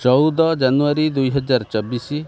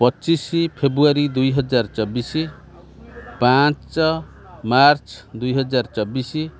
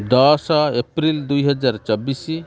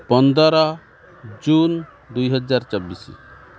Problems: constant background noise